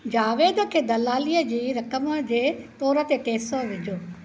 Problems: constant background noise